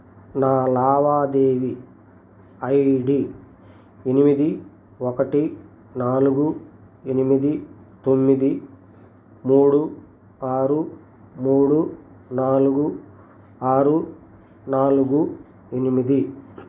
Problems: none marked